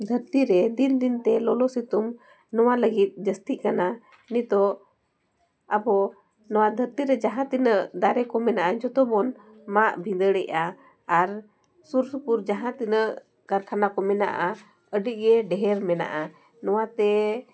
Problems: background conversations at intervals